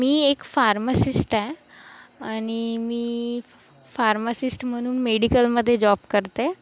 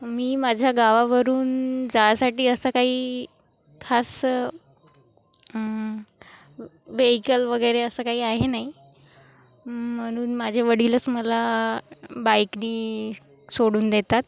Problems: constant background noise